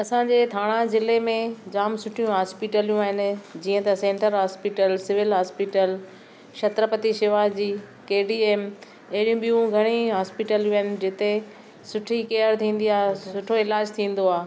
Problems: none marked